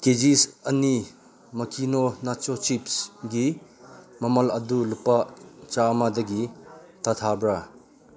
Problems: background conversations at intervals